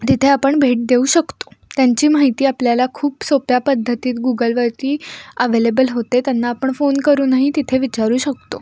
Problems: none marked